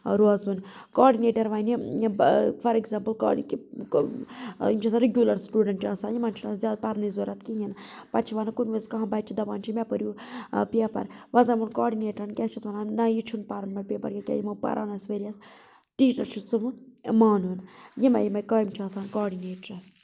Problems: constant background noise